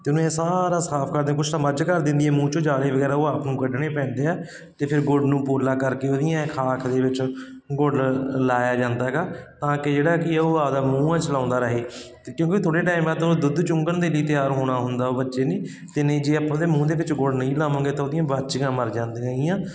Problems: constant background noise